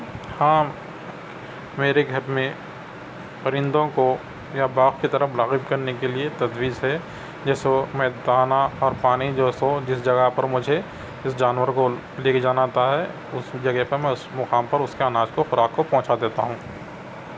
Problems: constant background noise